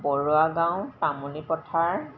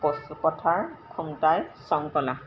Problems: constant background noise